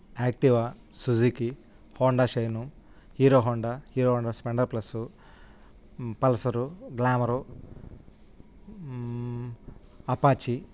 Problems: constant background noise